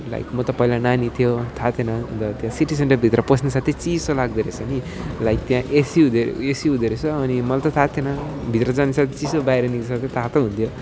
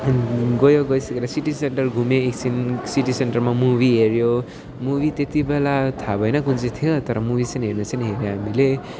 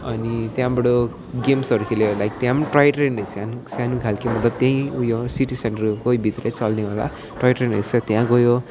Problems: constant background noise, continuous background conversations